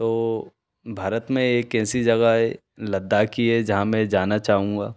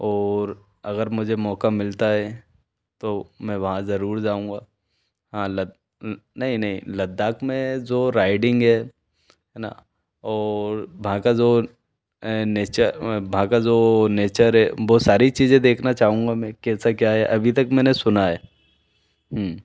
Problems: none marked